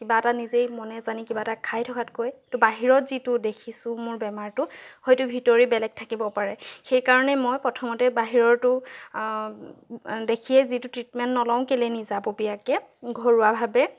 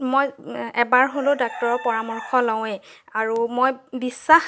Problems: none marked